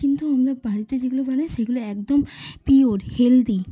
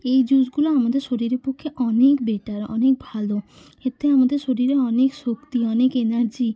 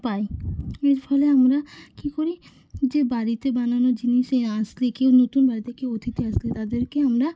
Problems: constant background noise, background conversations at intervals